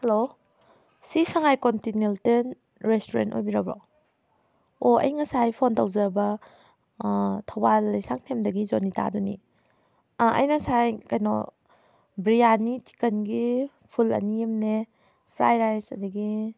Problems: none marked